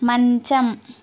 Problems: constant background noise